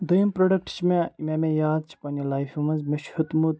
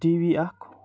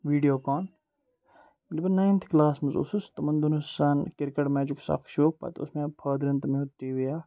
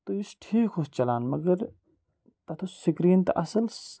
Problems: none marked